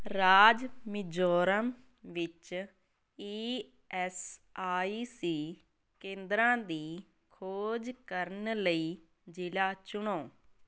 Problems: none marked